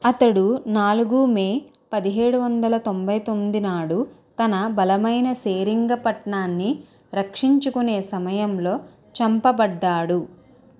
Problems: constant background noise, background conversations at intervals